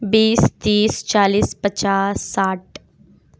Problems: constant background noise